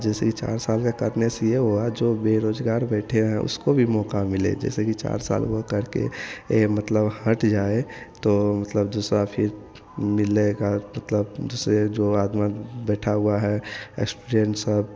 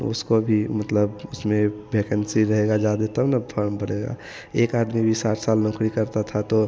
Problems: none marked